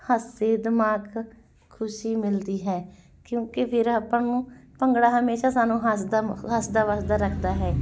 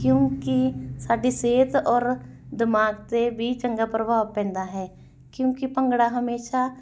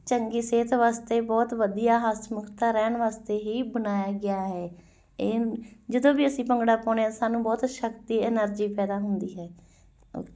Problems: background sounds at intervals